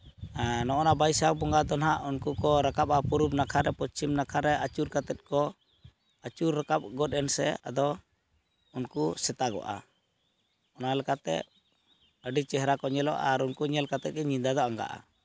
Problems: background sounds at intervals